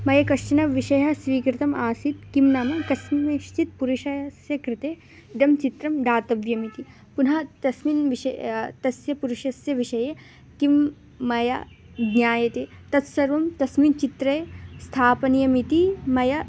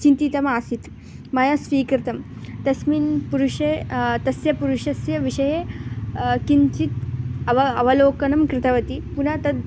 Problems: constant background noise